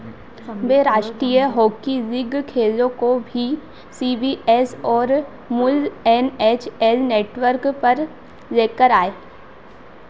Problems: none marked